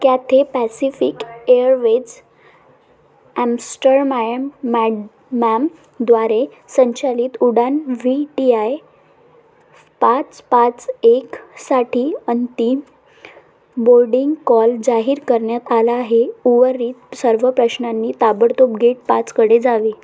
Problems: constant background noise, background conversations at intervals